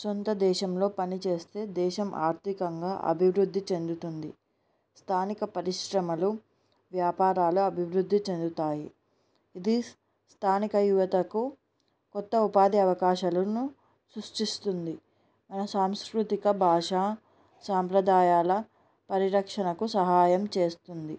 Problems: background sounds at intervals